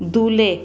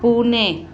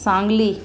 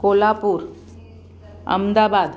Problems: constant background noise, continuous background conversations